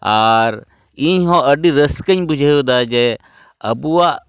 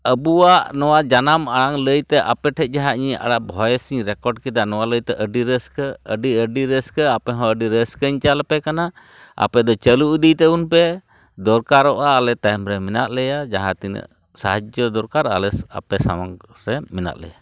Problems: none marked